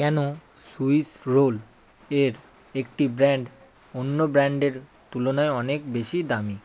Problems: none marked